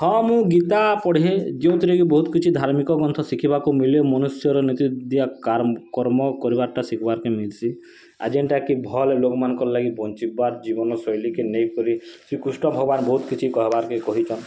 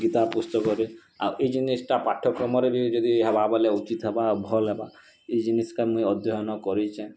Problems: constant background noise